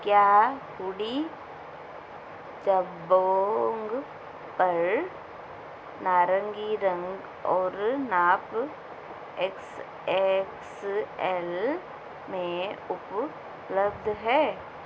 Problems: constant background noise